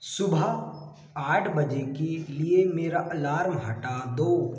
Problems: echo